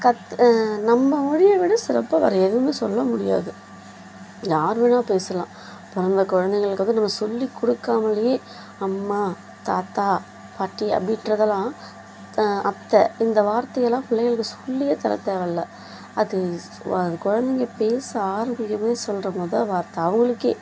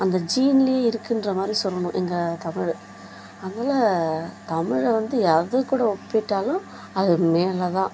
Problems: none marked